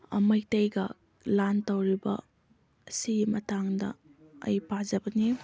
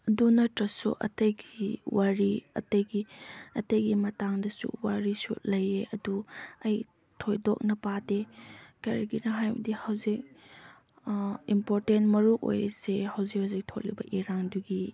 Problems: background sounds at intervals, background conversations at intervals